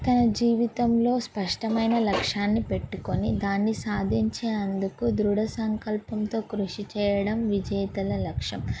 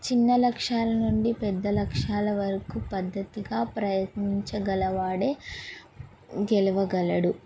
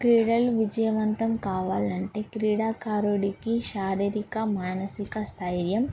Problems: background sounds at intervals